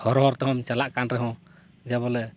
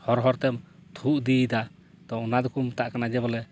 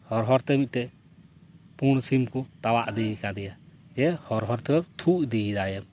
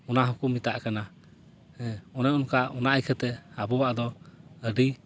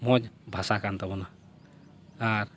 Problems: none marked